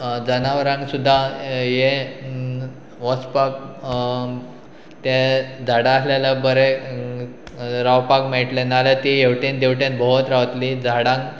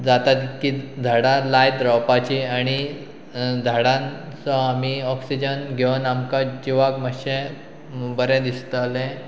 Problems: background sounds at intervals